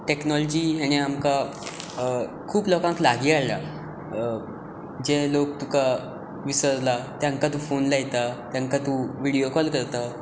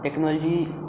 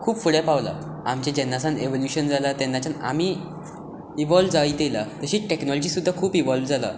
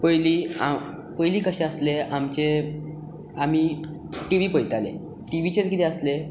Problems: none marked